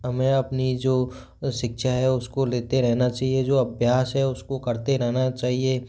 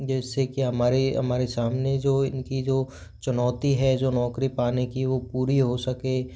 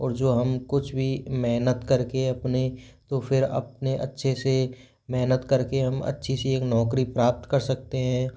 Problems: background sounds at intervals